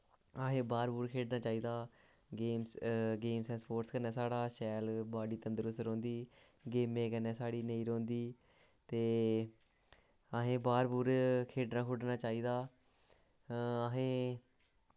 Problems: low volume